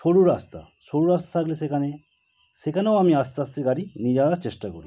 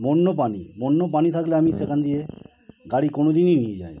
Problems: constant background noise